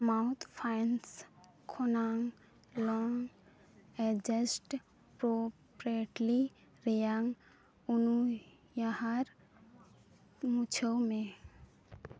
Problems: low volume